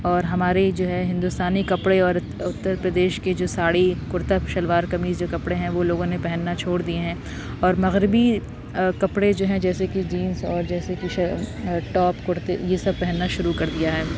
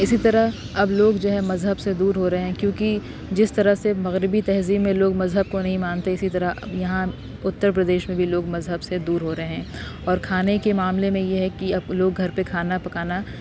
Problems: constant background noise